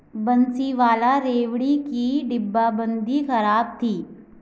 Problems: constant background noise